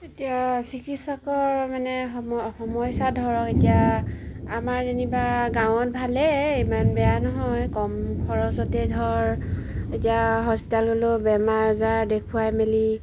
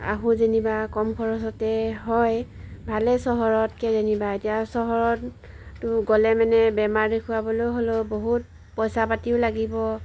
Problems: background sounds at intervals